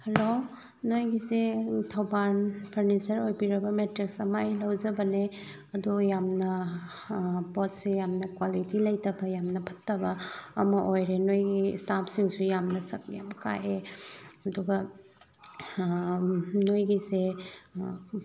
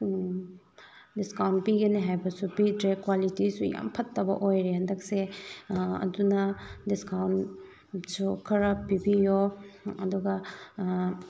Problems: low volume